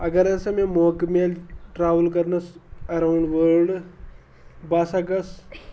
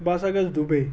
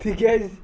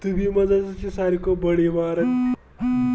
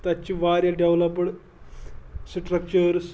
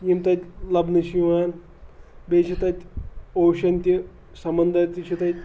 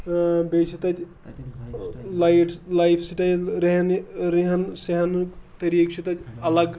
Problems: continuous background conversations